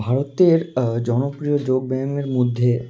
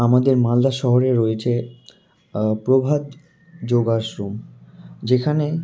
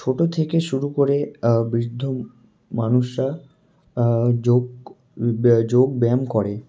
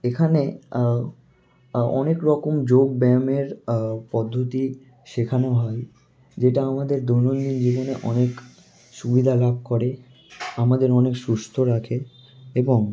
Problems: constant background noise